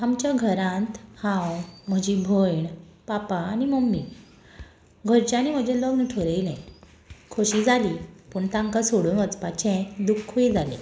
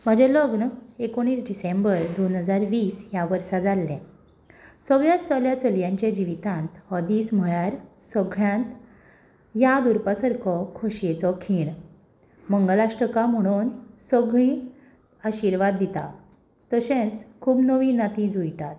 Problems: background sounds at intervals